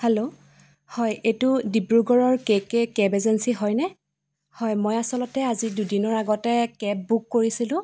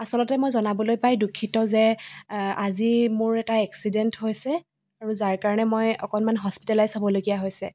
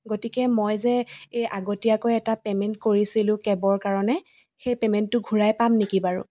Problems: constant background noise, echo